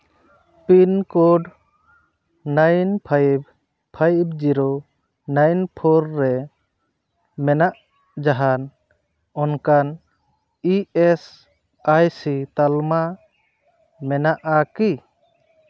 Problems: constant background noise